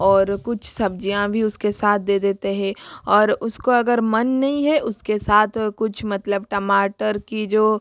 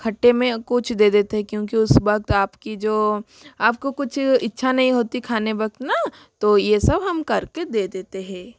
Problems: constant background noise